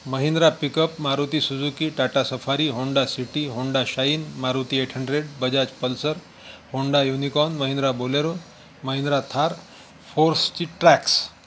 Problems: constant background noise